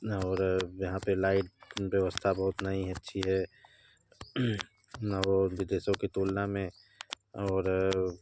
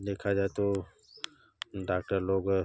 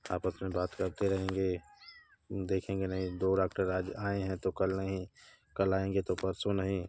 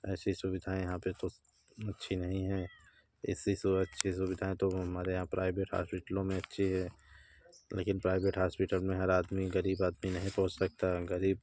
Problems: none marked